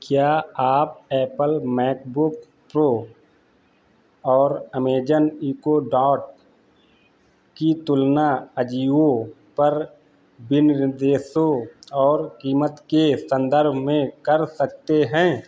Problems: none marked